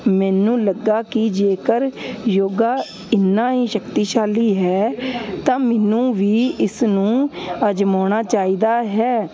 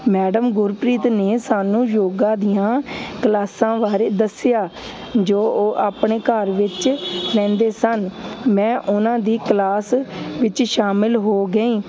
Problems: constant background noise